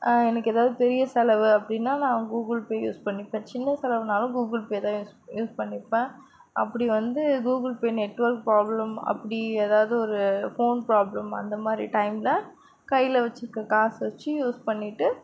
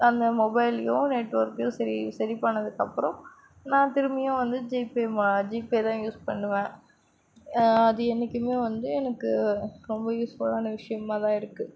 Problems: constant background noise